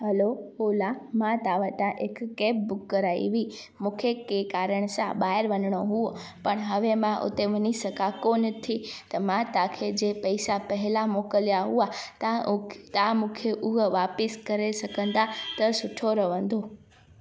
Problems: constant background noise